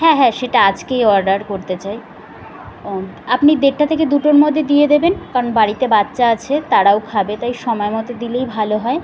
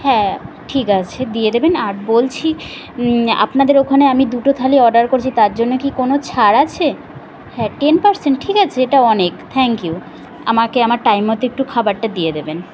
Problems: constant background noise, background conversations at intervals